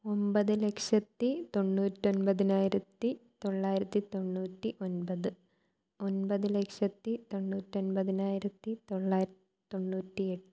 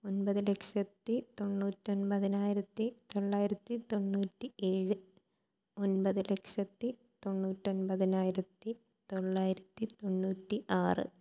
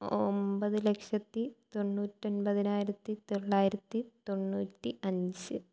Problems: low volume